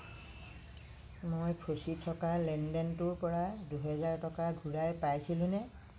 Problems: low volume